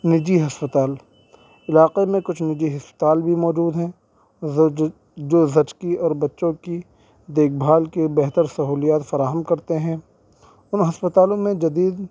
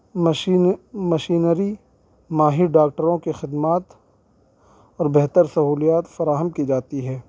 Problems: constant background noise